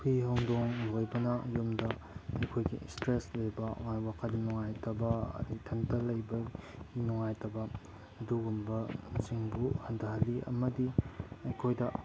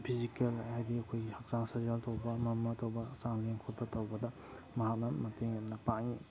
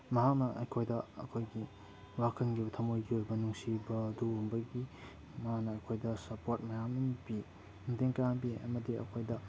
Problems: background sounds at intervals